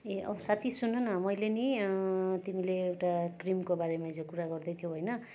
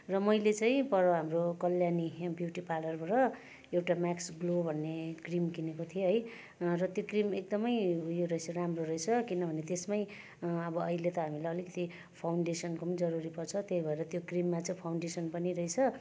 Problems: constant background noise, continuous background conversations